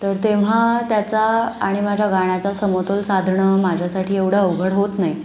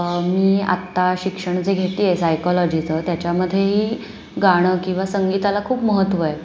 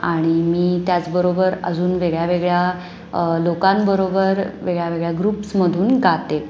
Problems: constant background noise